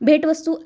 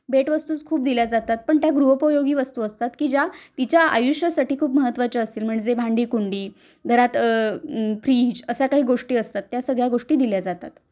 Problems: none marked